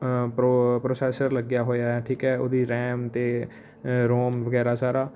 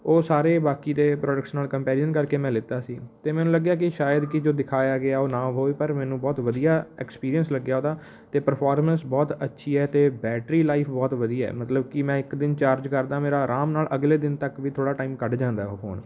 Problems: none marked